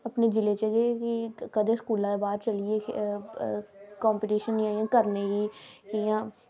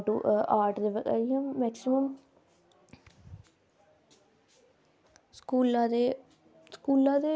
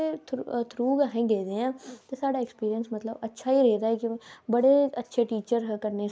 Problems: none marked